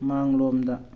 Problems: none marked